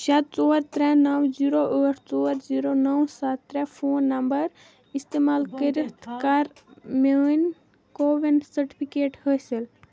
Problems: background conversations at intervals